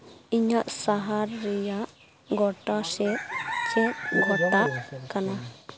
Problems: background sounds at intervals, background conversations at intervals